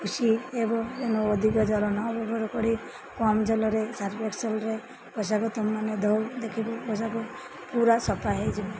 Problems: constant background noise, background conversations at intervals